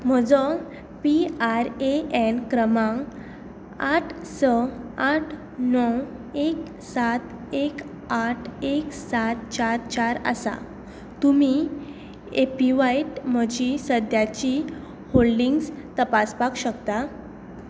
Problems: none marked